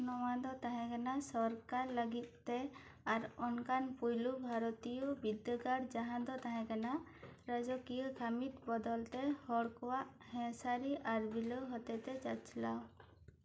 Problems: low volume